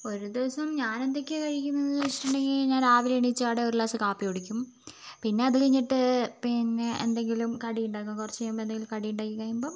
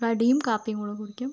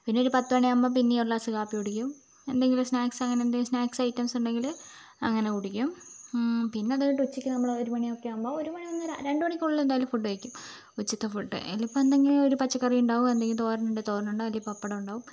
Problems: none marked